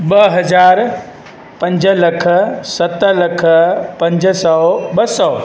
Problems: constant background noise, echo